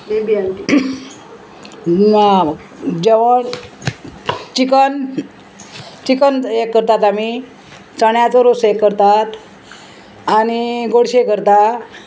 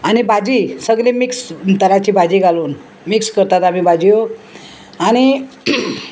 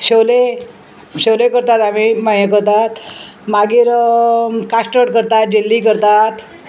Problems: constant background noise